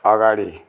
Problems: none marked